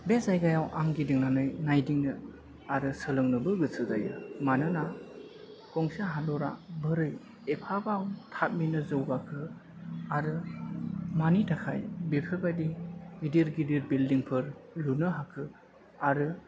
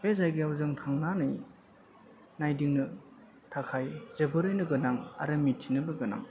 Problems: constant background noise